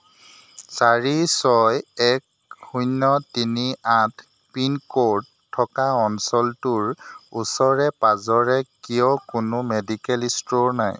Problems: constant background noise